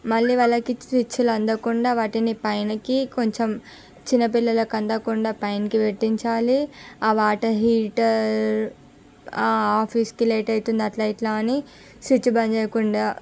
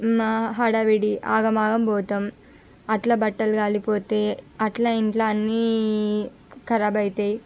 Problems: background sounds at intervals